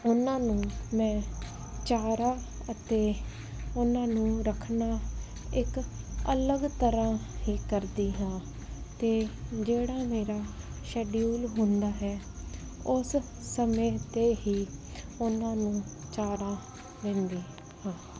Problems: constant background noise